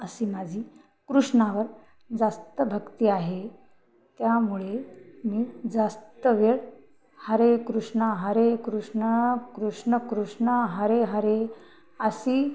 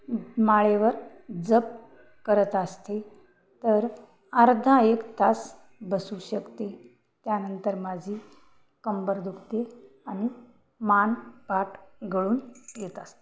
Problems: none marked